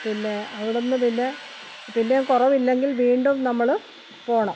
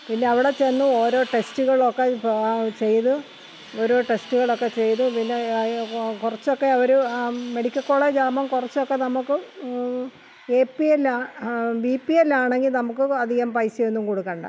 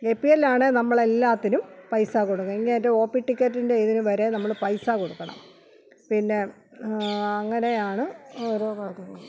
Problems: constant background noise